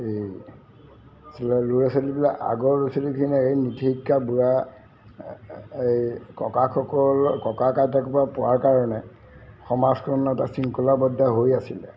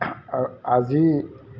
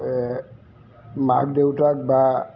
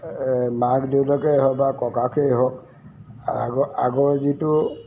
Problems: none marked